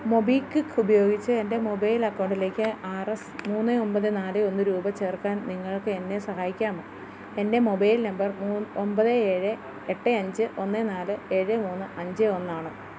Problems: constant background noise, low volume